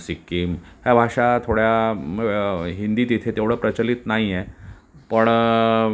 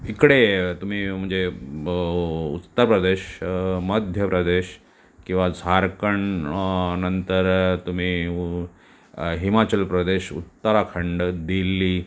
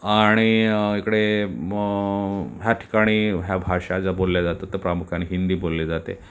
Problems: none marked